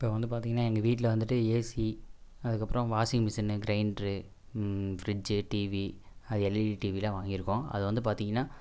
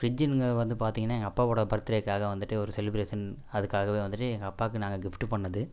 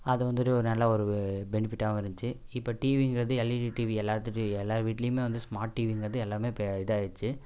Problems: none marked